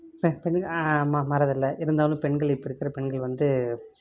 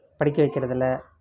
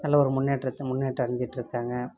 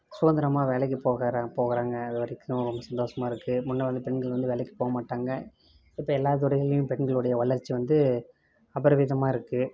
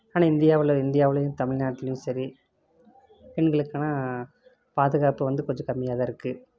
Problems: constant background noise